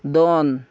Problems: none marked